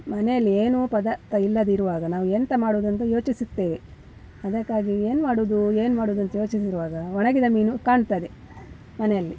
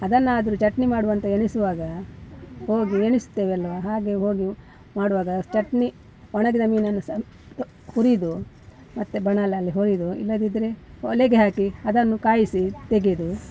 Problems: background conversations at intervals